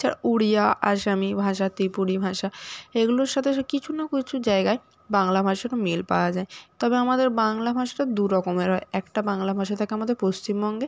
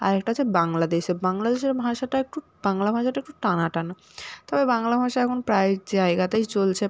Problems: constant background noise